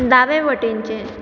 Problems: constant background noise